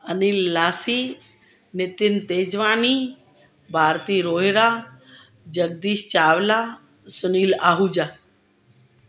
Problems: constant background noise